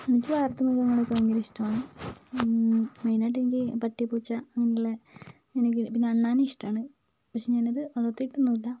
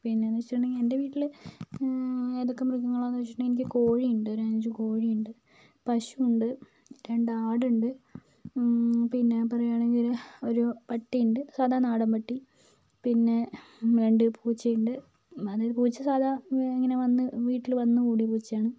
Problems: low volume